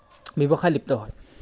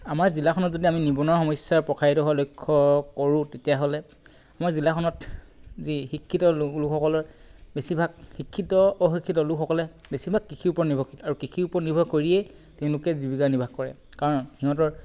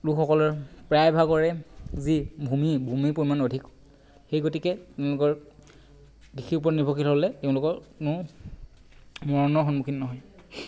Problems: constant background noise